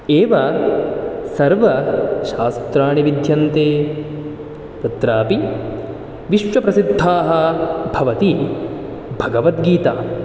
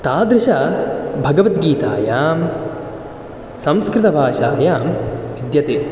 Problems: none marked